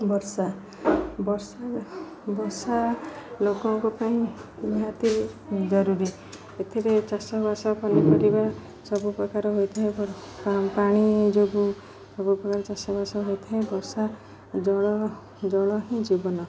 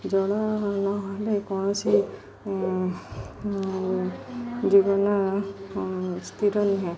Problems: constant background noise, continuous background conversations